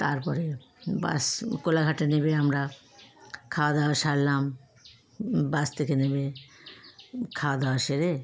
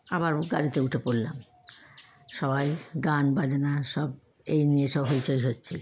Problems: constant background noise